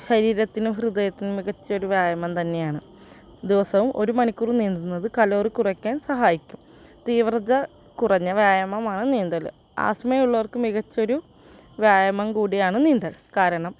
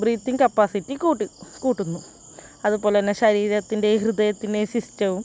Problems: constant background noise